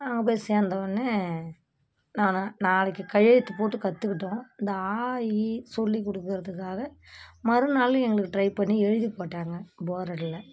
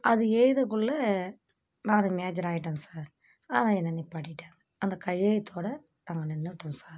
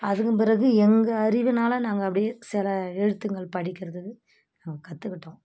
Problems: constant background noise